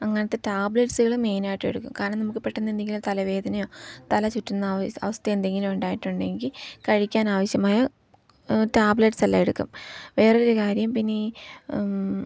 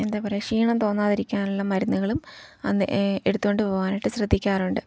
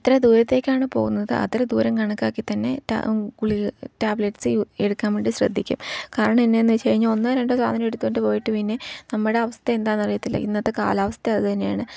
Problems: low volume